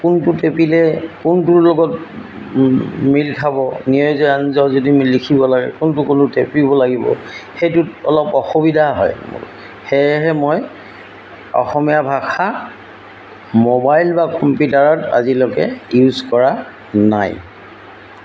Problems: constant background noise